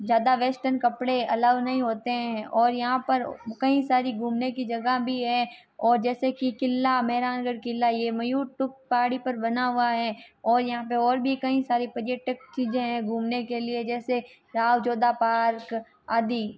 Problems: none marked